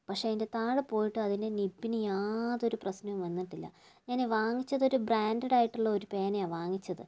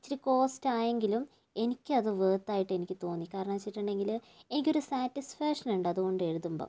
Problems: low volume